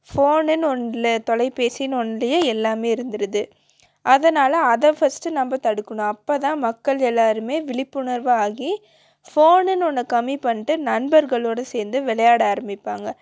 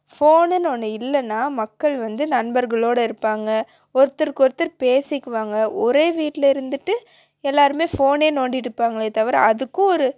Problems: none marked